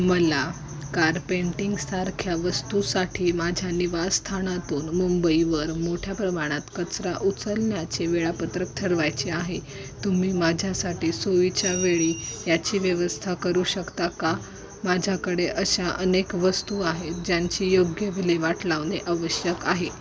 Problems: constant background noise, continuous background conversations